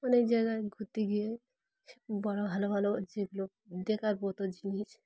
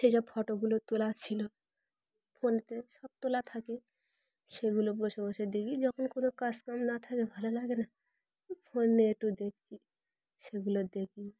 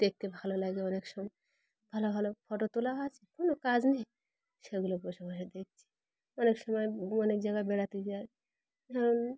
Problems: background sounds at intervals